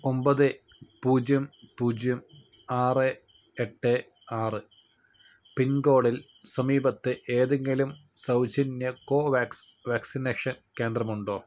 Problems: none marked